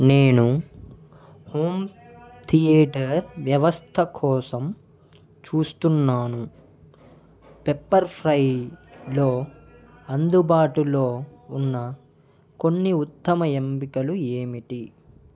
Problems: background sounds at intervals, background conversations at intervals